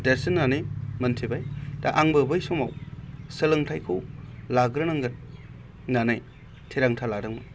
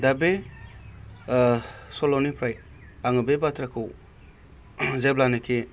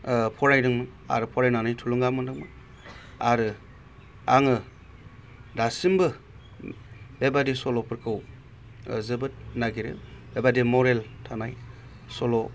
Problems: constant background noise